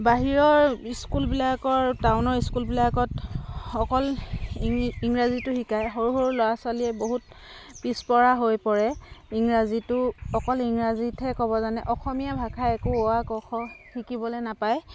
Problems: constant background noise, background conversations at intervals